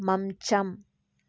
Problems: low volume